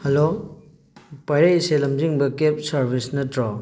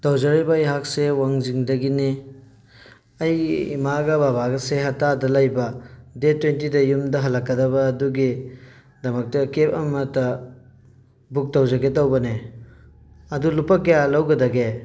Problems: background sounds at intervals